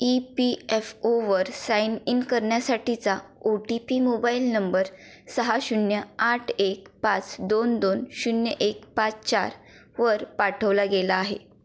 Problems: background sounds at intervals